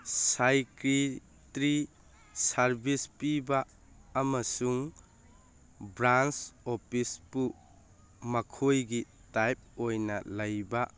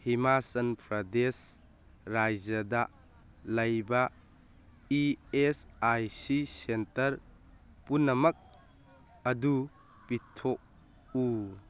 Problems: background sounds at intervals